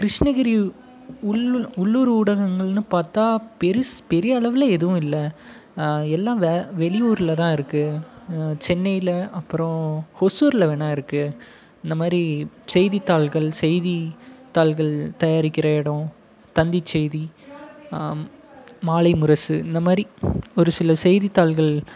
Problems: background conversations at intervals